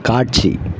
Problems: constant background noise